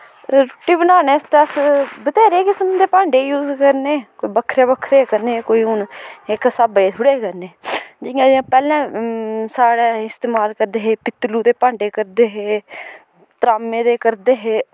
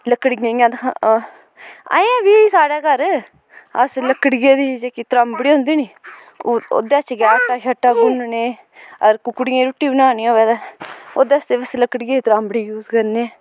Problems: constant background noise